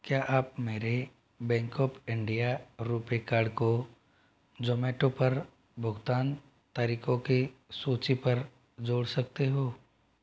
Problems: none marked